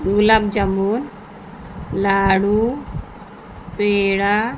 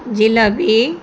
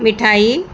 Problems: constant background noise, background conversations at intervals